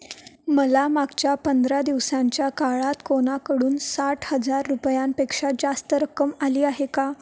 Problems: background sounds at intervals